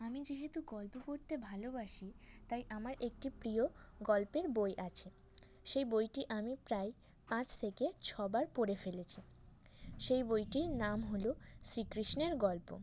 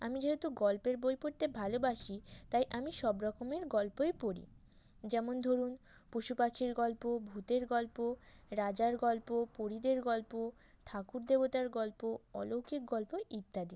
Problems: constant background noise